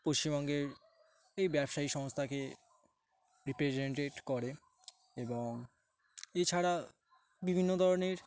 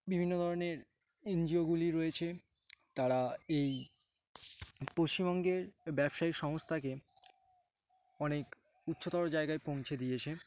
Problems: background sounds at intervals, background conversations at intervals